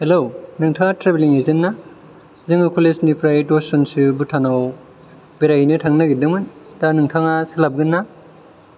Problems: none marked